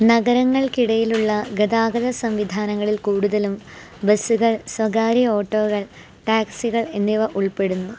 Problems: none marked